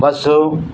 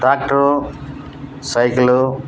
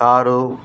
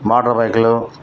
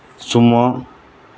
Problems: background sounds at intervals